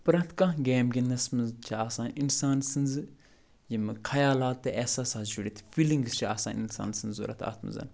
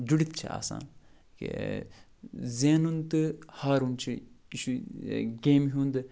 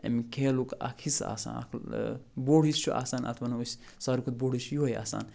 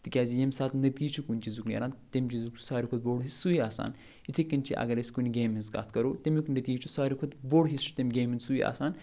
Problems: none marked